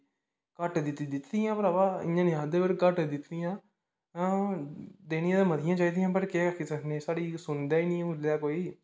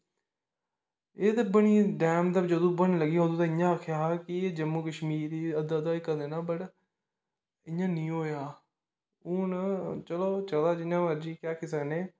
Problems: background sounds at intervals, echo